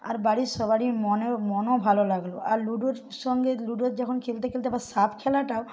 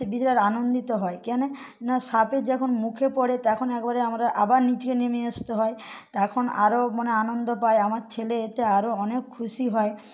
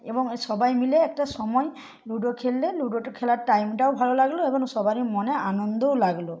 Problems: background sounds at intervals